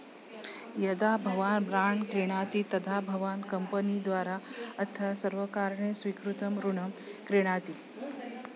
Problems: continuous background conversations